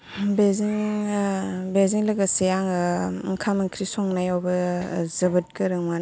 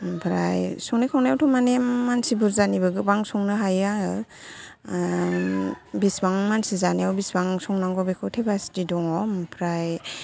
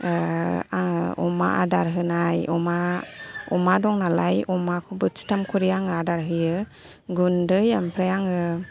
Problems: continuous background conversations